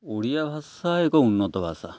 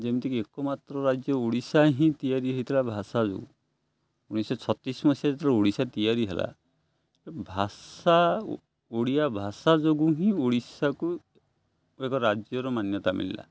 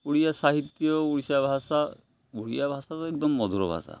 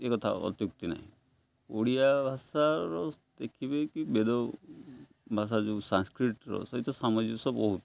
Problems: none marked